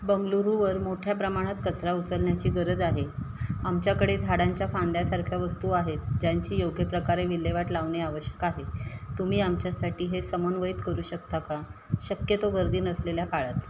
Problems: none marked